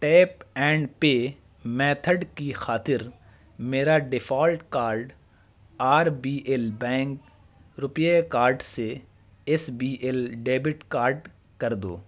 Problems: constant background noise